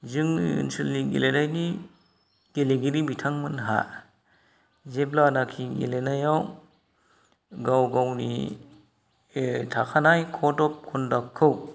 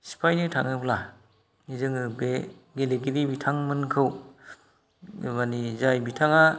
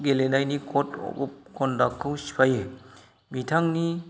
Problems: none marked